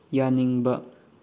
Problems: low volume